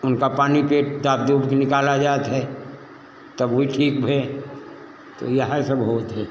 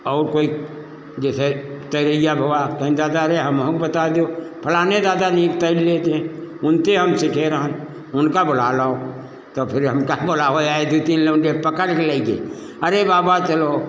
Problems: constant background noise